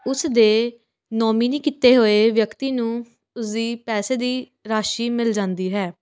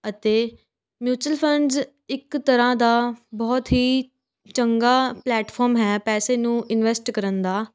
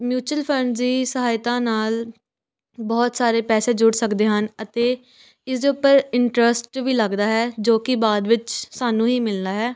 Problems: constant background noise, background conversations at intervals